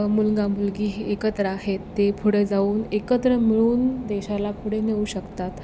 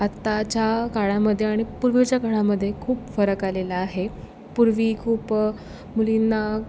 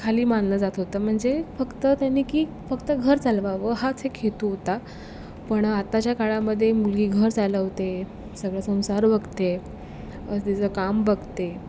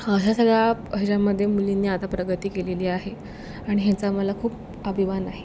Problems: background sounds at intervals